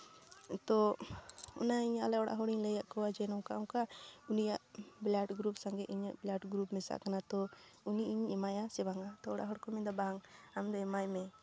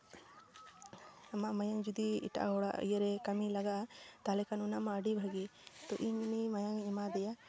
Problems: background conversations at intervals